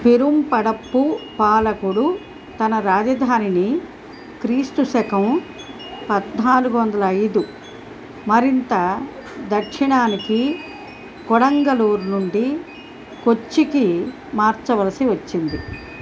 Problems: background sounds at intervals